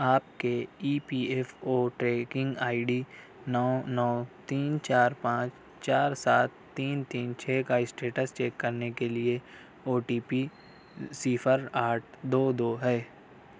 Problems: none marked